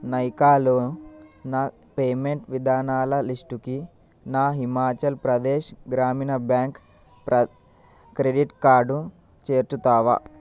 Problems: constant background noise